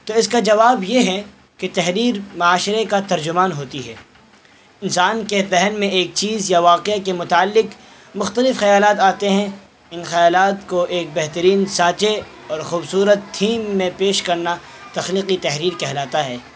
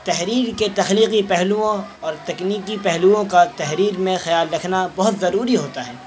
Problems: constant background noise